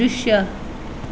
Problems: none marked